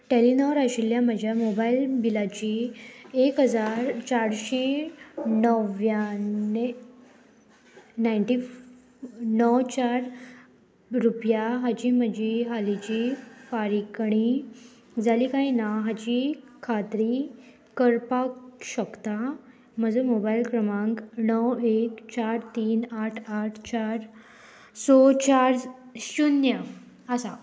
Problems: constant background noise